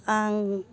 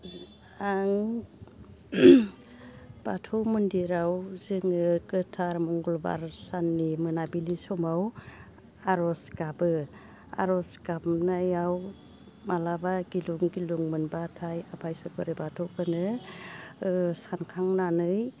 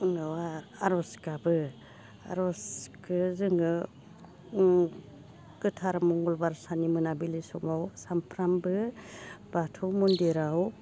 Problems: constant background noise